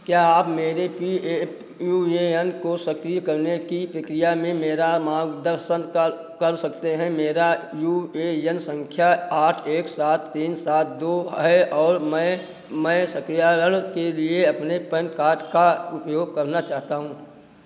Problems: none marked